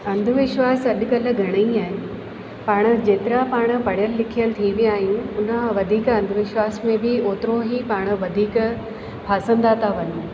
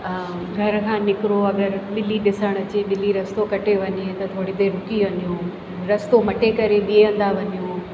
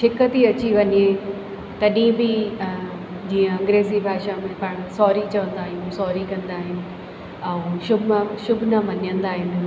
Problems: constant background noise, echo